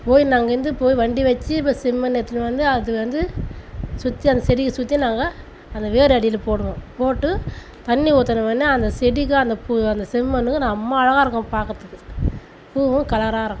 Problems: constant background noise